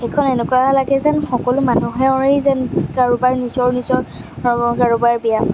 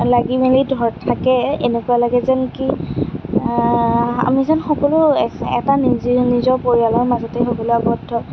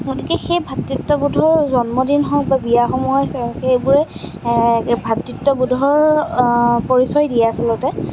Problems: none marked